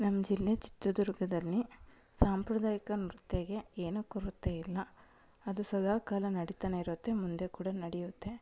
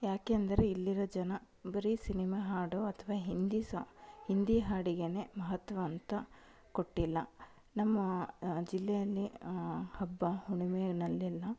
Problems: low volume